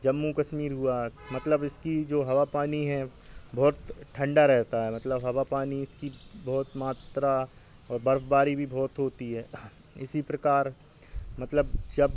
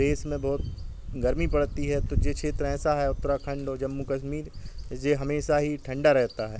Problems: none marked